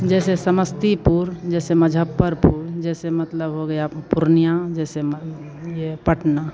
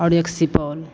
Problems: none marked